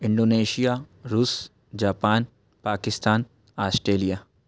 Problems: none marked